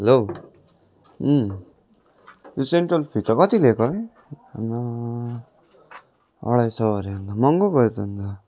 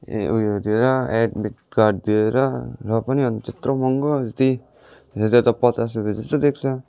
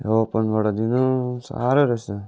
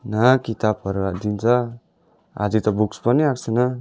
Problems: none marked